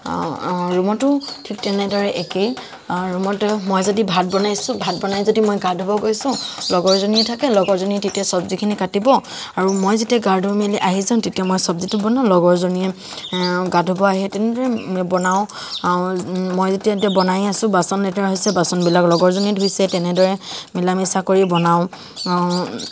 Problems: constant background noise